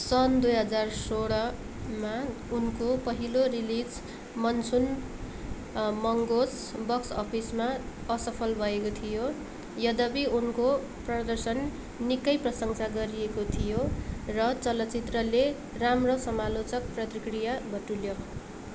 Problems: background sounds at intervals